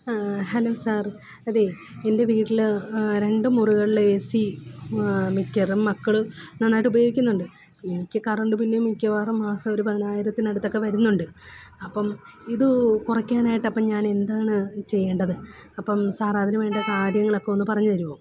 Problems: background sounds at intervals